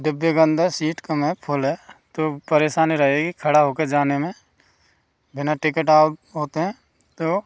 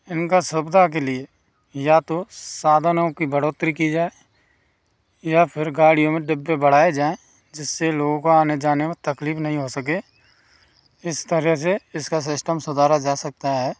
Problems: background sounds at intervals